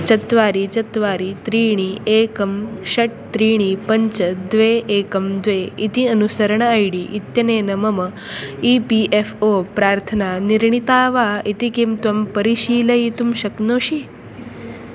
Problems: none marked